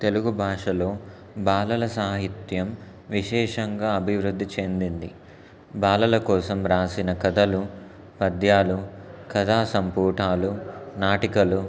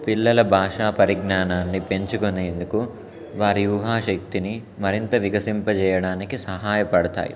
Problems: constant background noise